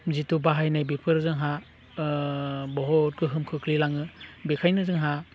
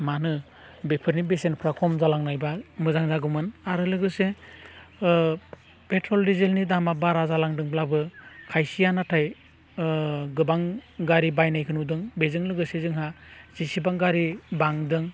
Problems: none marked